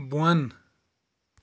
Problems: none marked